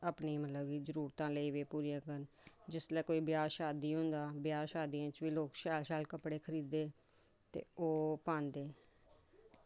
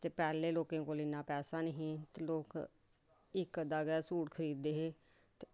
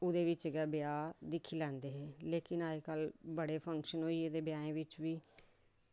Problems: none marked